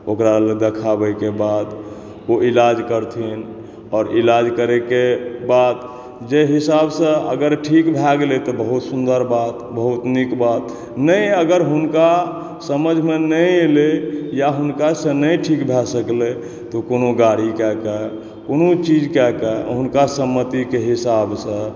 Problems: background sounds at intervals